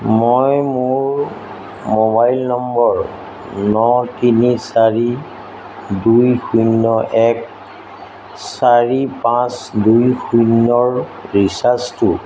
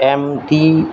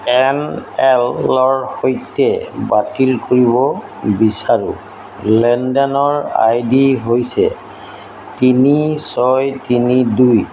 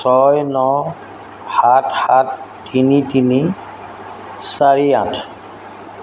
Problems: constant background noise